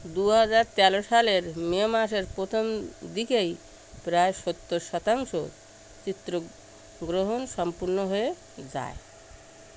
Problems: constant background noise